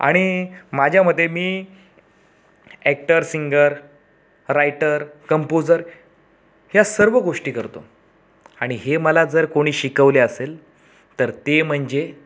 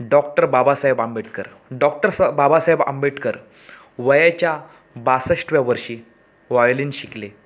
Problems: background sounds at intervals